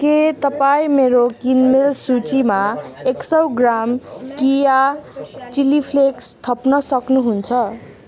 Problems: continuous background conversations